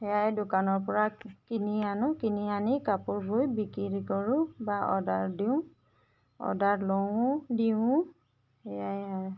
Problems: none marked